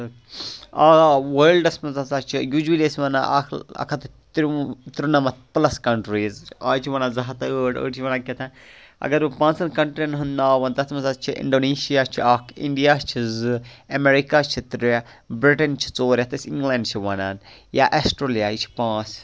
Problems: none marked